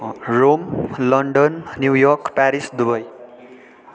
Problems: continuous background conversations